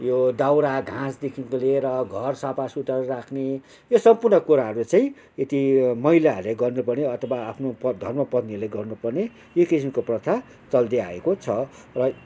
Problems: background sounds at intervals